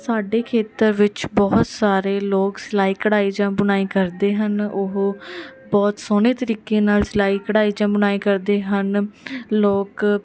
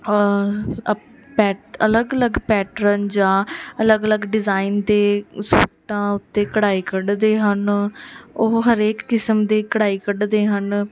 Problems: none marked